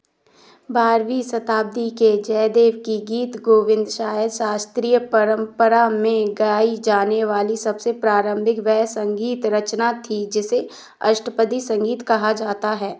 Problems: none marked